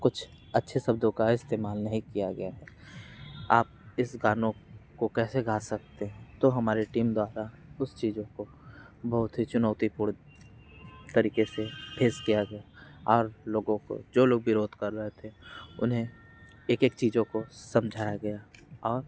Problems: background sounds at intervals